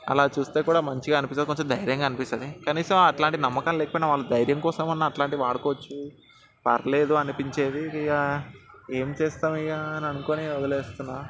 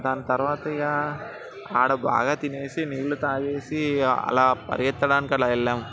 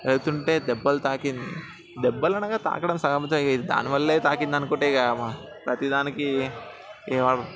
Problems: background sounds at intervals, continuous background conversations